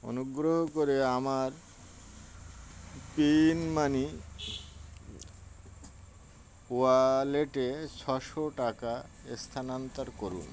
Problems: constant background noise